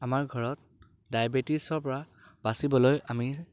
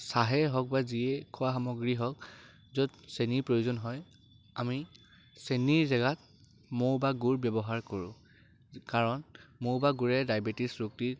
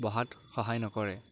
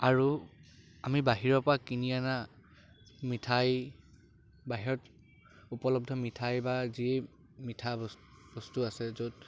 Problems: constant background noise